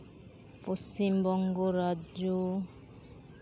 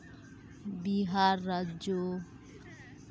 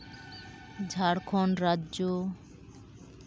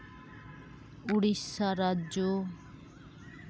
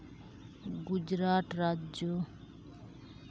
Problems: none marked